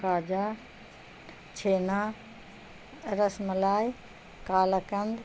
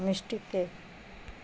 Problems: constant background noise